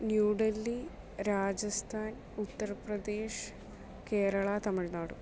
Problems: none marked